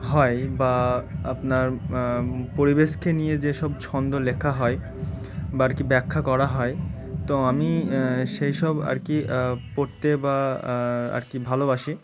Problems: constant background noise